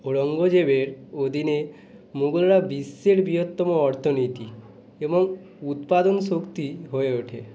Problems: continuous background conversations